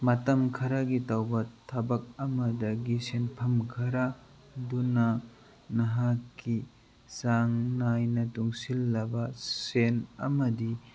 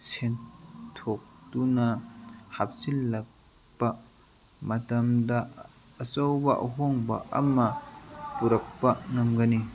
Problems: background sounds at intervals, background conversations at intervals